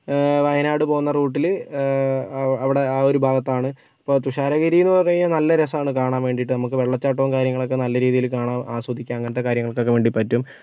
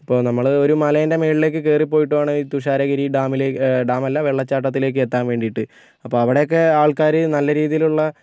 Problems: none marked